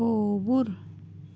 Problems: constant background noise, low volume